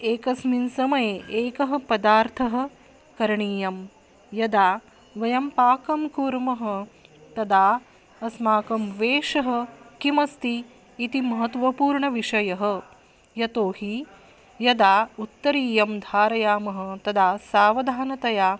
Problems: background sounds at intervals